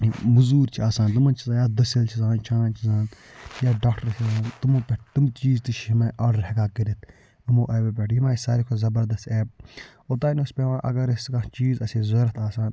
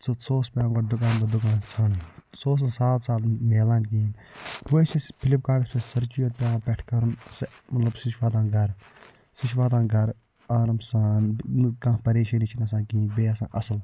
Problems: background sounds at intervals, low volume